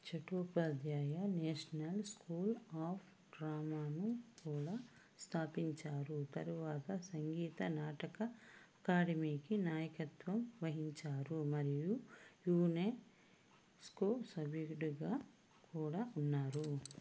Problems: background sounds at intervals